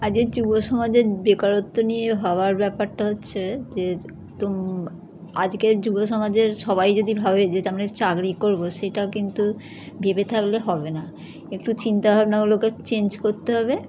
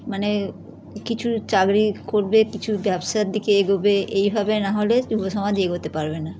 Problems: none marked